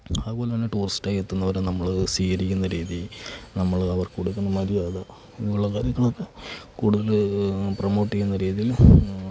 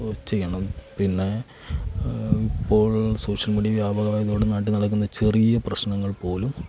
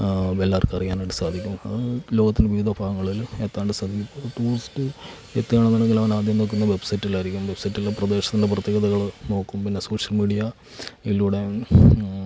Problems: none marked